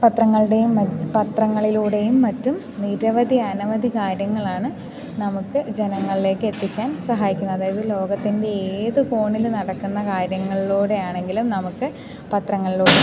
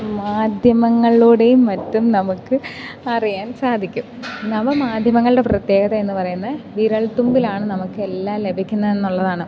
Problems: background sounds at intervals